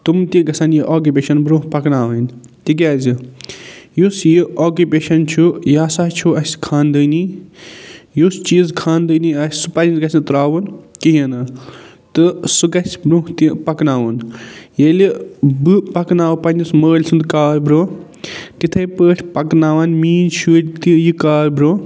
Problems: none marked